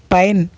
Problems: none marked